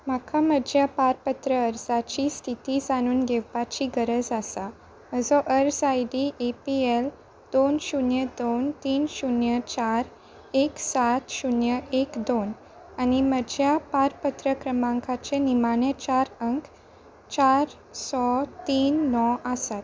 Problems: none marked